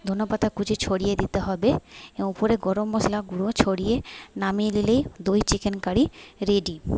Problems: background sounds at intervals